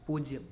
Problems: none marked